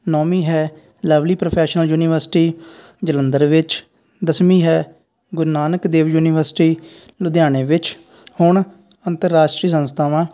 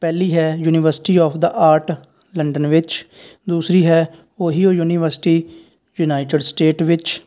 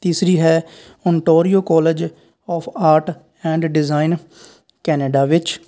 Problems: none marked